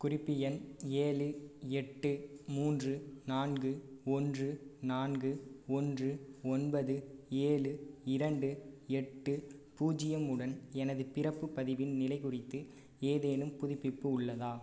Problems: low volume